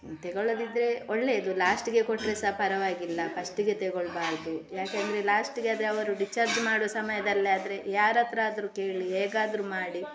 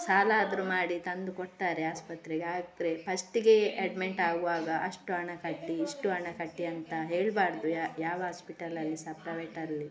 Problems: constant background noise, continuous background conversations